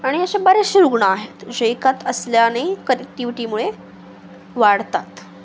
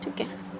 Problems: constant background noise